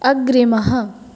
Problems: none marked